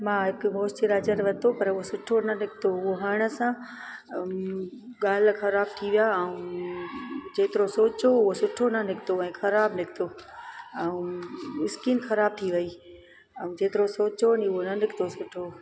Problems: constant background noise